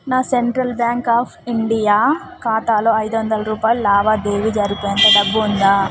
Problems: constant background noise